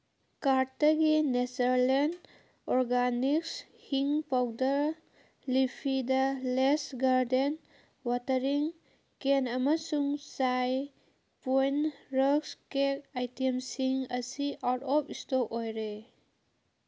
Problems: none marked